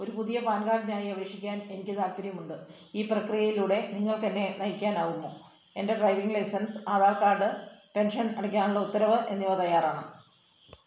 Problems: none marked